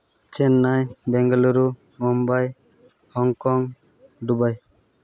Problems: none marked